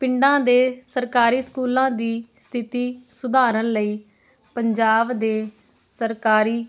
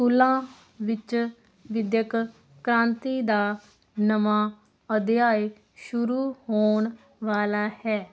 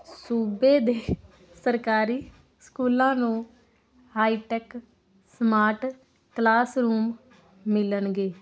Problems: constant background noise